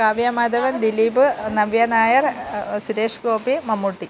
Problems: none marked